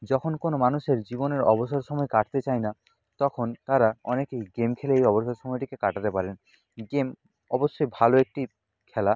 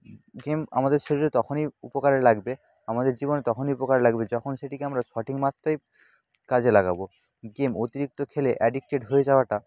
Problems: background sounds at intervals, background conversations at intervals